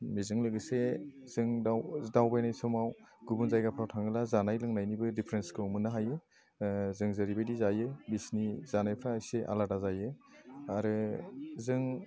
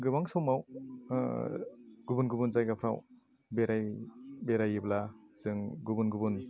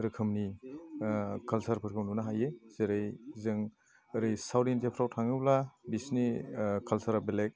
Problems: none marked